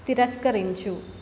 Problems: constant background noise